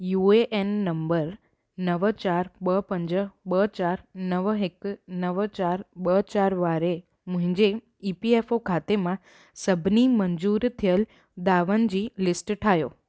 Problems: none marked